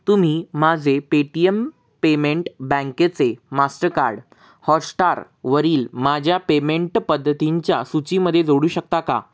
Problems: constant background noise